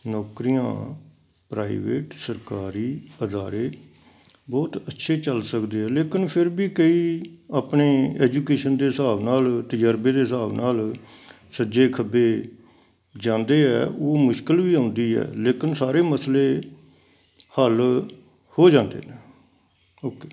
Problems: none marked